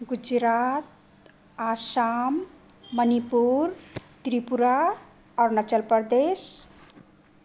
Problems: constant background noise